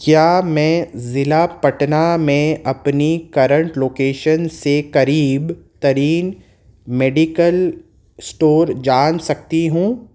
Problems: none marked